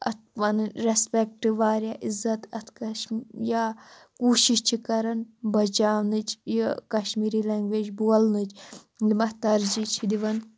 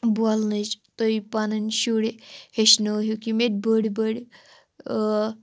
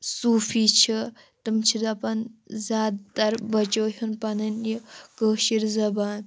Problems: constant background noise